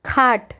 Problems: background sounds at intervals